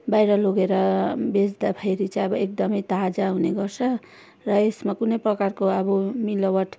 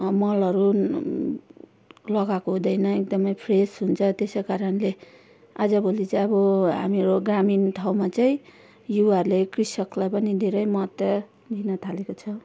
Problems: background conversations at intervals